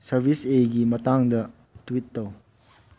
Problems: background conversations at intervals, low volume